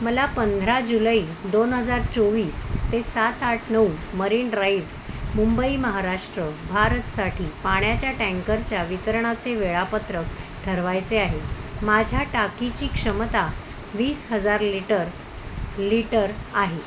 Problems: constant background noise